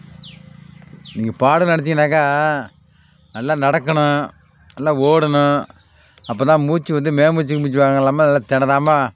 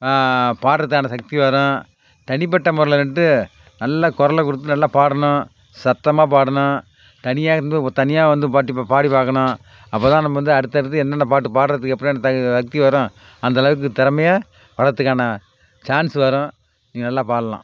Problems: background sounds at intervals